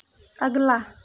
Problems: constant background noise